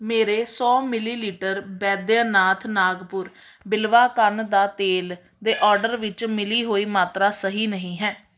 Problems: background sounds at intervals